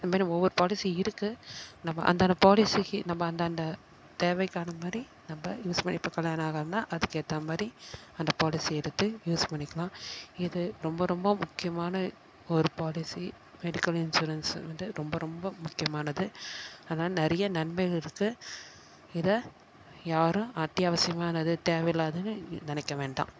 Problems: none marked